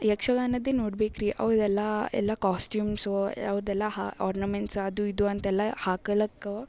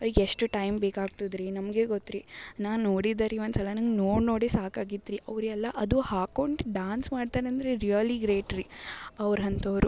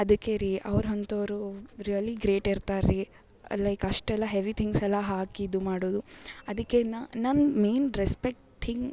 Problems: background sounds at intervals